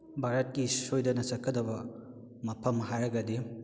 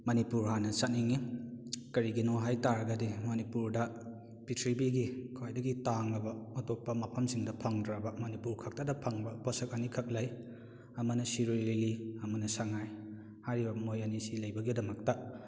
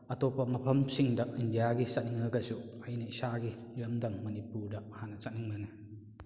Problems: none marked